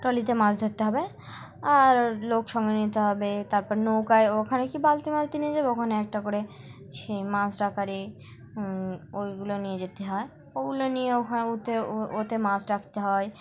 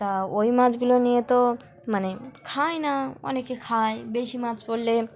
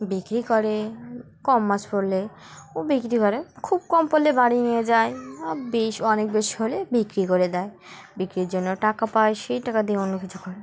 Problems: constant background noise, background conversations at intervals